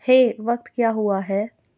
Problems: constant background noise